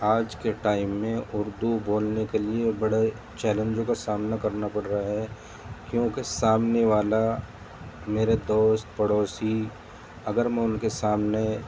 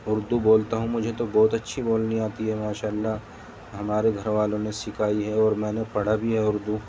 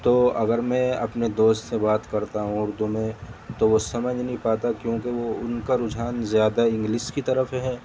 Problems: constant background noise